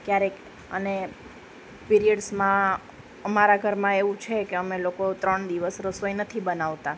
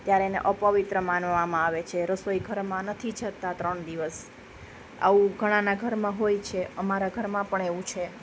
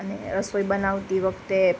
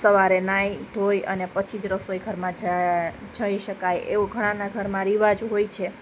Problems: constant background noise